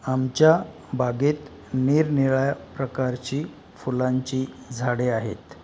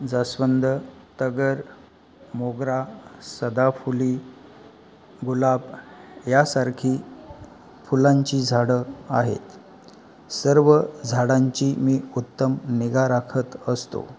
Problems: background sounds at intervals, background conversations at intervals